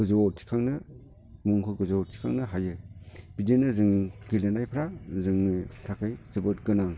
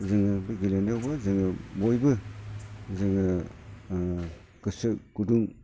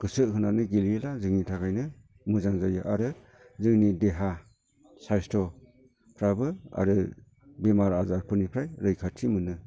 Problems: constant background noise